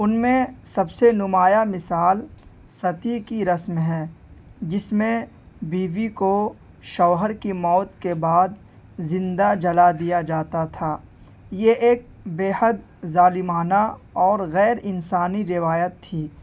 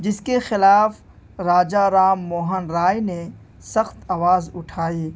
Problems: background sounds at intervals